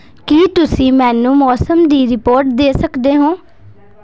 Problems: background sounds at intervals